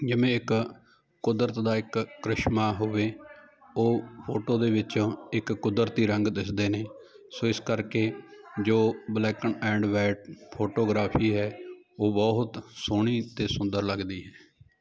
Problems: continuous background conversations